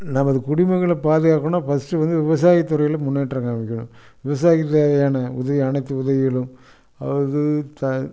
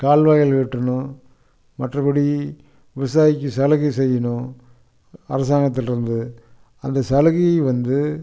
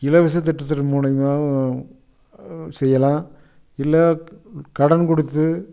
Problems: constant background noise